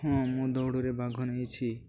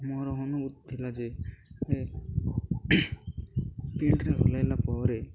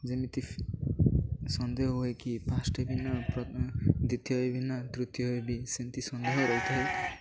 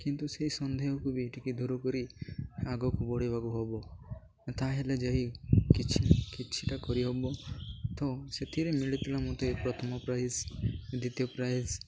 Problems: background sounds at intervals, low volume